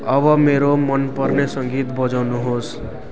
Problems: constant background noise